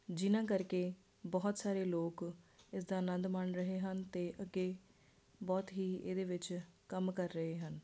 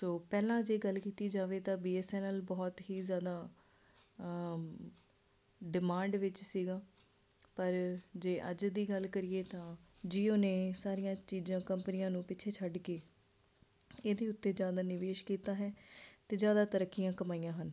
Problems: constant background noise